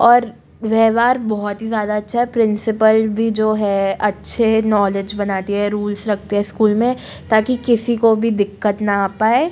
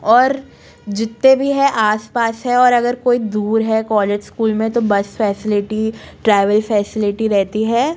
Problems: none marked